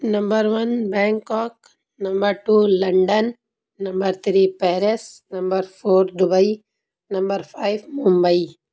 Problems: constant background noise